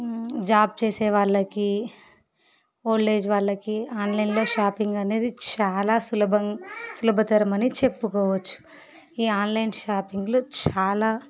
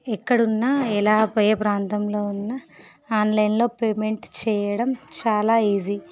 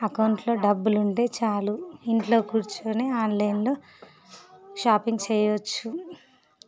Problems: background sounds at intervals